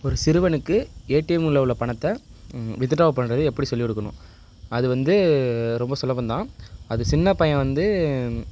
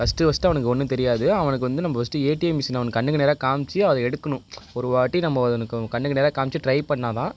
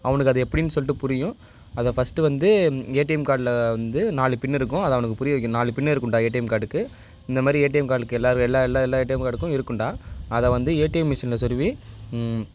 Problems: none marked